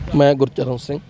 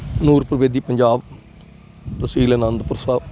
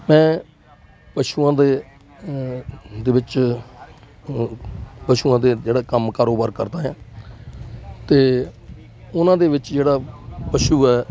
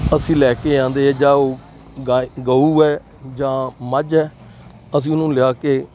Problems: none marked